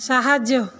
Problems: none marked